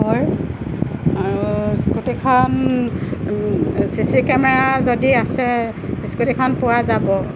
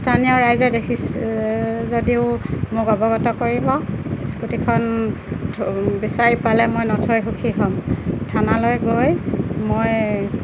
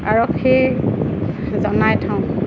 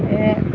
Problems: constant background noise